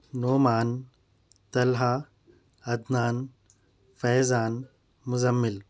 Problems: background sounds at intervals